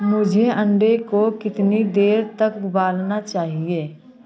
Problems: none marked